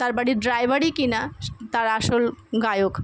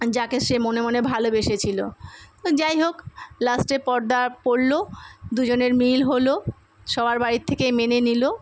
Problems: none marked